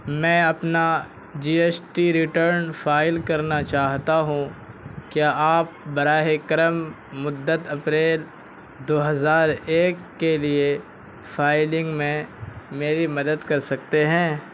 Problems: constant background noise